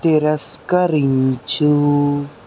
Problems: none marked